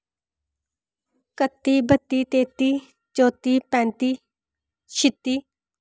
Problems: none marked